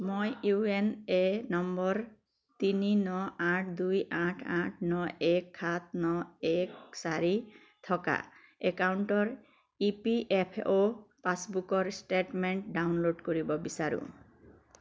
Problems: constant background noise